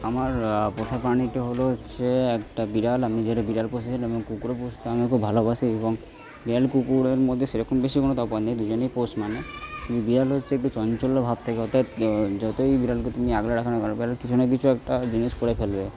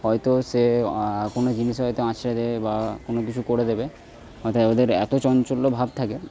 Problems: background sounds at intervals, continuous background conversations